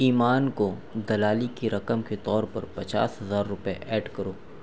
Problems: none marked